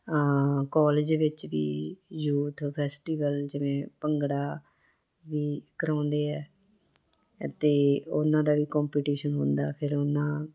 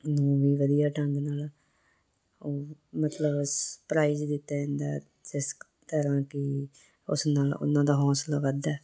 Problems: none marked